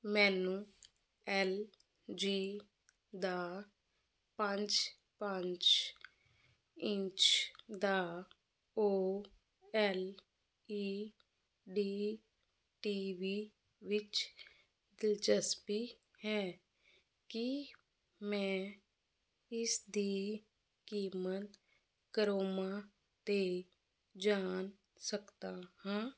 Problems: constant background noise